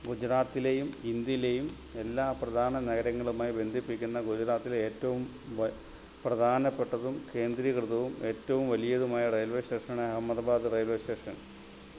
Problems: constant background noise, low volume